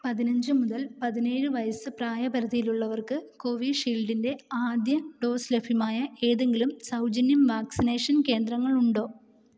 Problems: low volume